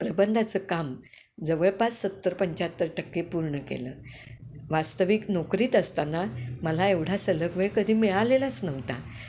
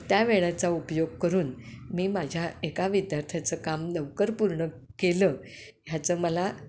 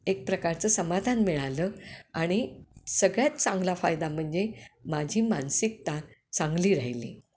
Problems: constant background noise